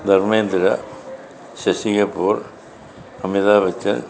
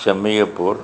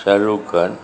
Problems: continuous background conversations